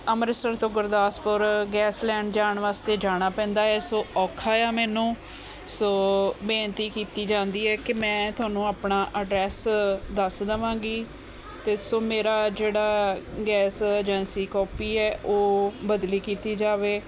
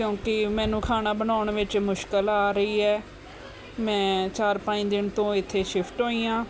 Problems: constant background noise